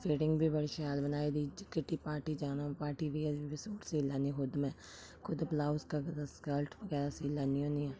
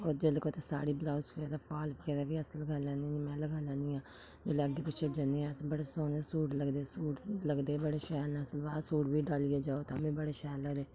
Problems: low volume